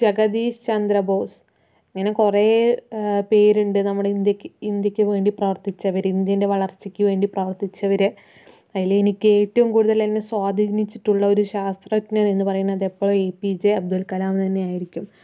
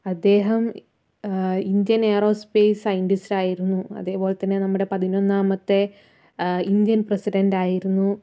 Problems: none marked